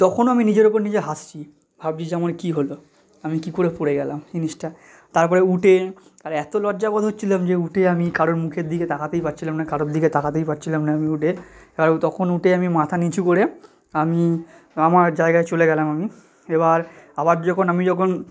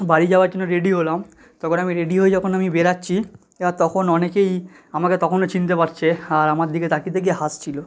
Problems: none marked